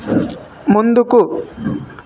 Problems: constant background noise